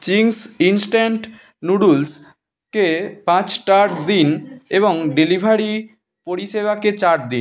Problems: none marked